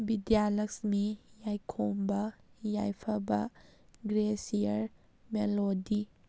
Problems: none marked